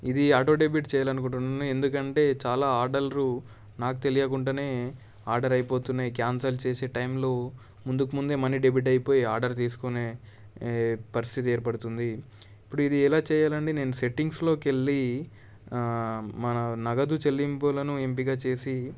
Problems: none marked